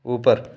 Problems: background sounds at intervals